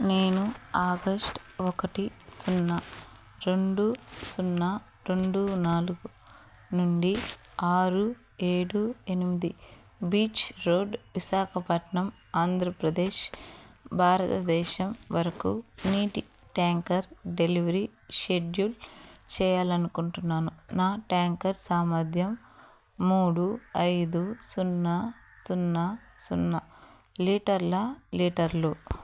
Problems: background sounds at intervals